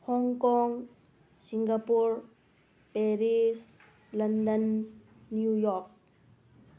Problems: none marked